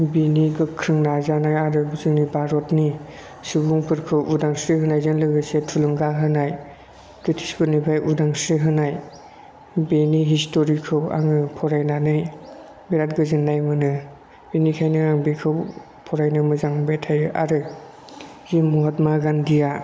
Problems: constant background noise